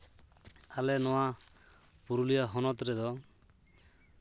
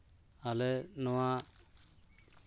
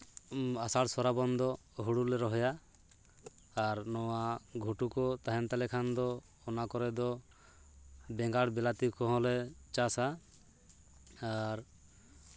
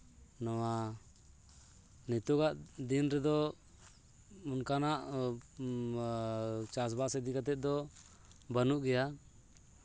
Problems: background sounds at intervals